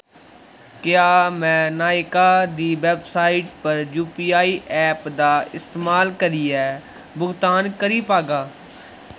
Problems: constant background noise